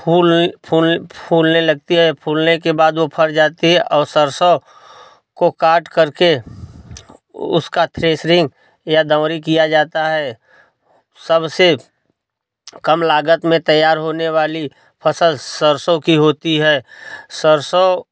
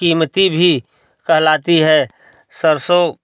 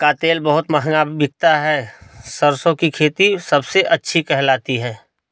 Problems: none marked